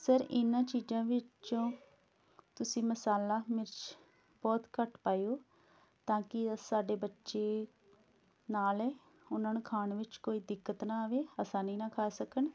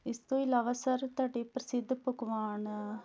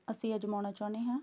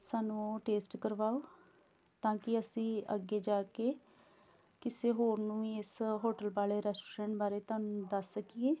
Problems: background sounds at intervals